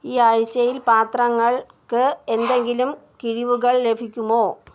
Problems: none marked